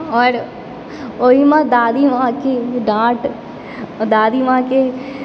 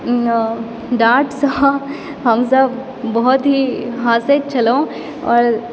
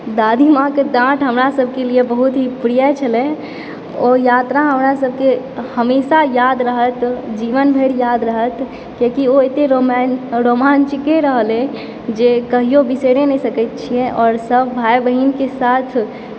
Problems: background sounds at intervals